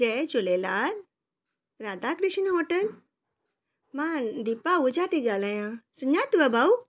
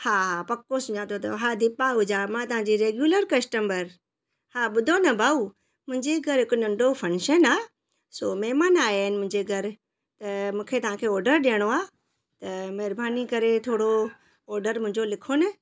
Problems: none marked